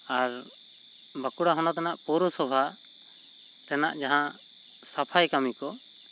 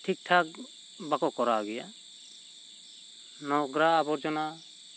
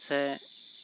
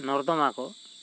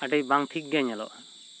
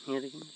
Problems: constant background noise